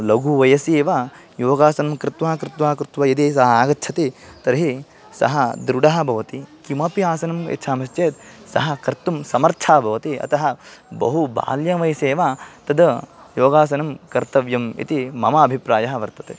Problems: none marked